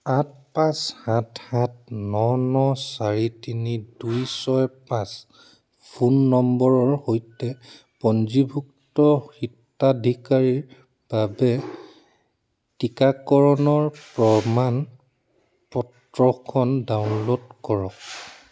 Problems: constant background noise